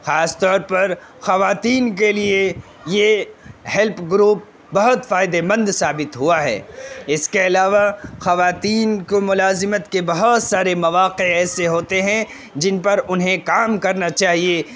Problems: constant background noise